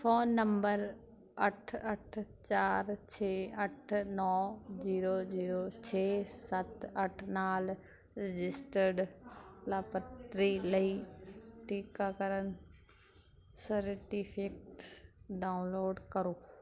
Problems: none marked